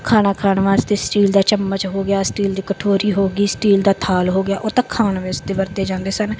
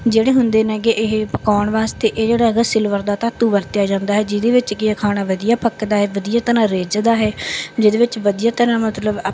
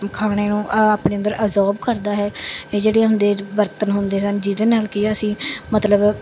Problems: background sounds at intervals, background conversations at intervals